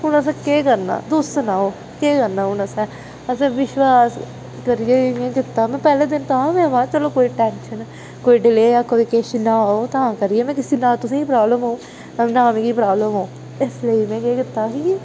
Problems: constant background noise